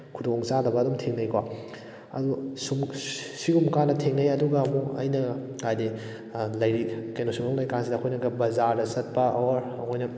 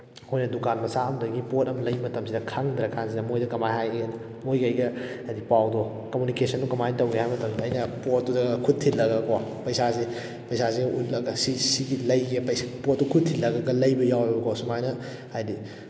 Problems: background sounds at intervals